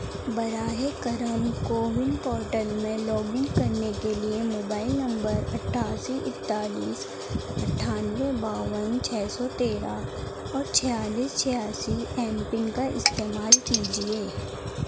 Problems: constant background noise, low volume